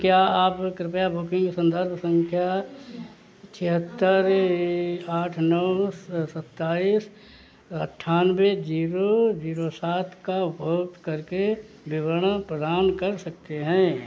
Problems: constant background noise